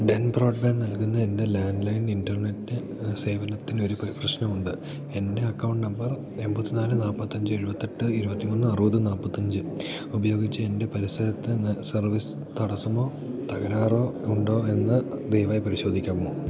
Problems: none marked